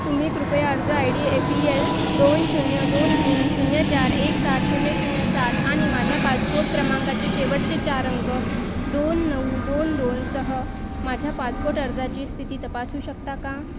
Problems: constant background noise